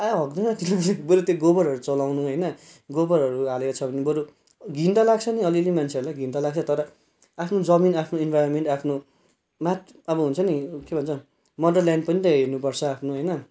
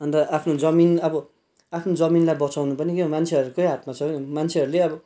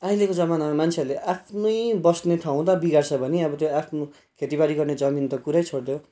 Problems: background sounds at intervals